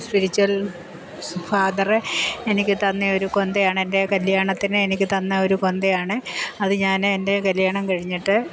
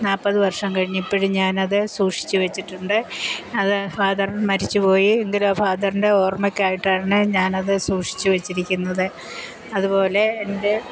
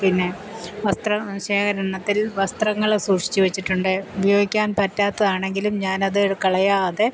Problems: constant background noise